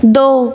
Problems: none marked